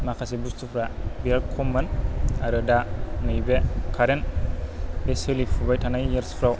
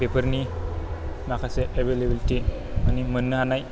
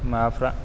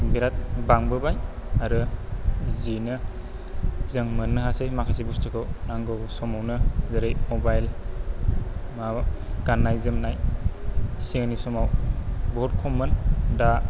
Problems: low volume